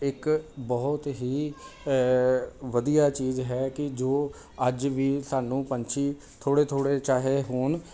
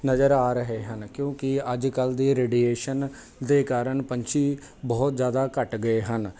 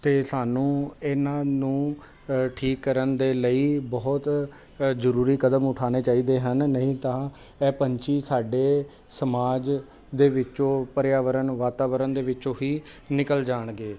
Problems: background conversations at intervals